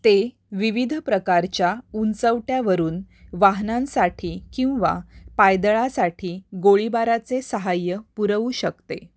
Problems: background sounds at intervals